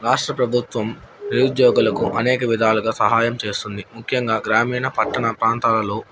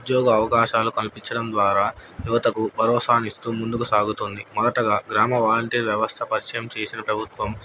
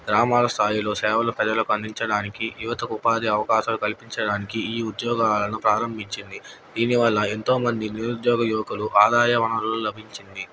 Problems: none marked